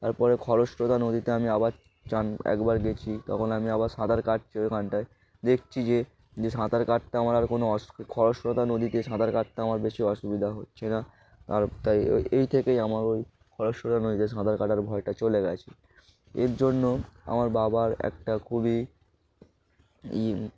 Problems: background sounds at intervals